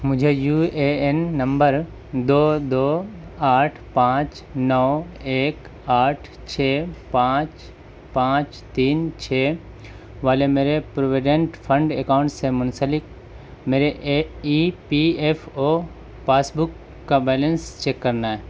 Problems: none marked